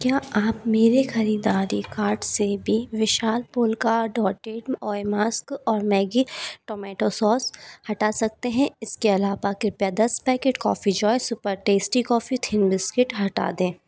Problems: background sounds at intervals